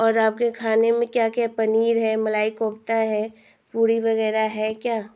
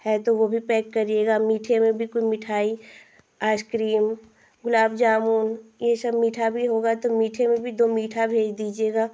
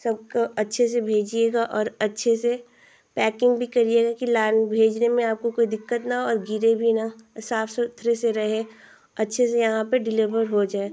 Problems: constant background noise